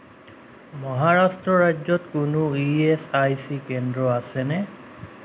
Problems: none marked